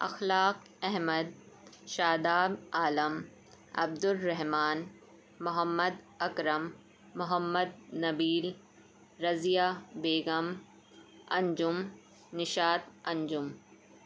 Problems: constant background noise